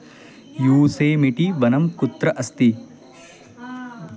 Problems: constant background noise, continuous background conversations